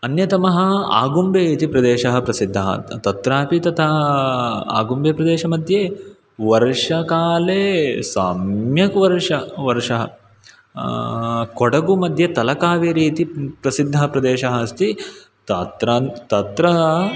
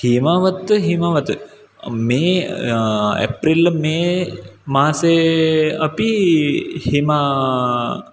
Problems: background sounds at intervals